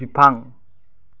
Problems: low volume